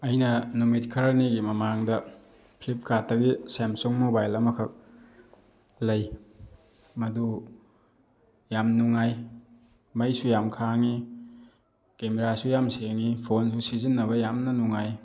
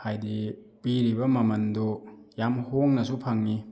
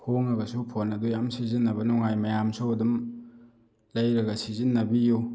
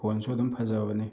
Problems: none marked